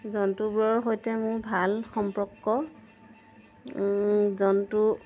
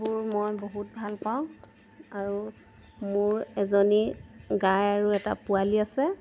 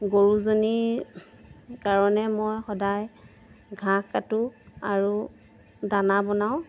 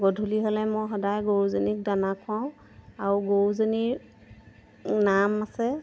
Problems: background sounds at intervals